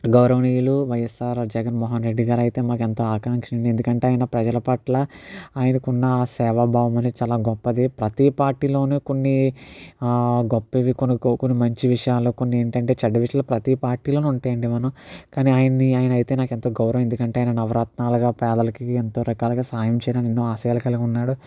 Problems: none marked